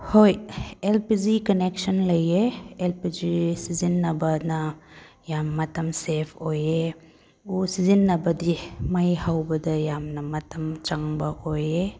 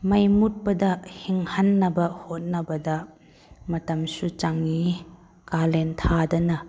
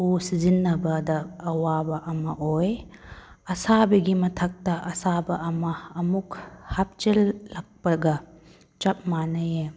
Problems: none marked